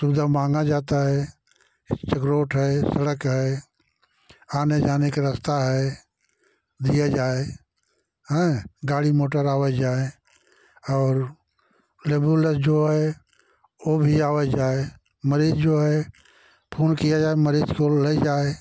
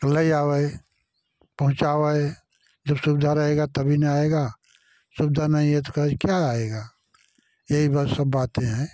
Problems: none marked